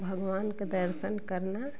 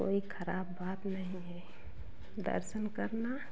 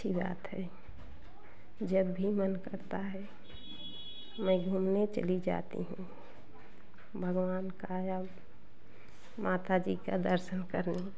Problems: constant background noise, continuous background conversations